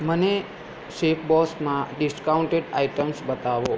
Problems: constant background noise